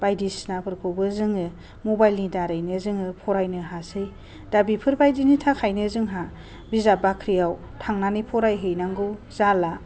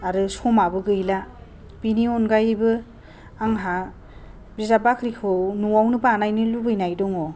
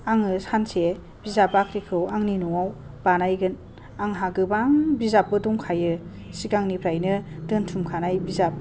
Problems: low volume